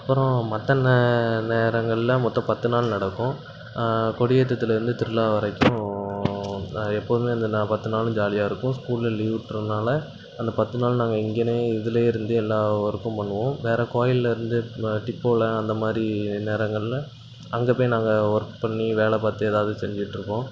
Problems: constant background noise